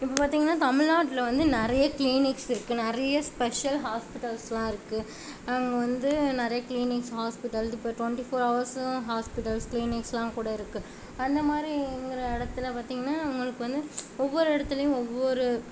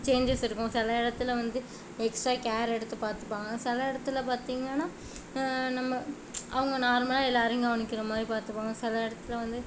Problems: constant background noise